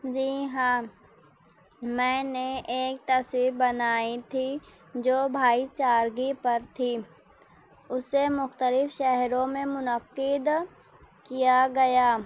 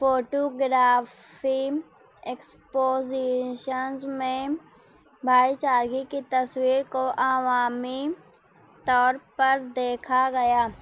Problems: none marked